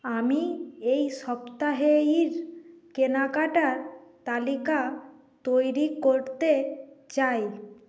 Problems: background sounds at intervals